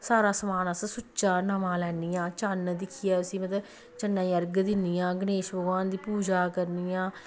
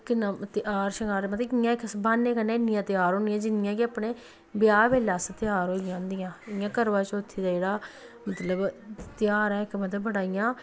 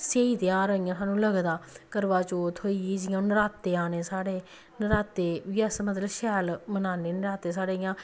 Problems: none marked